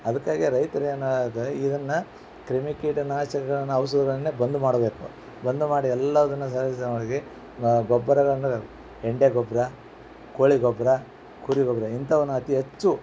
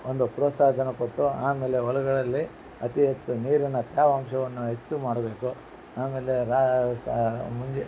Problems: background sounds at intervals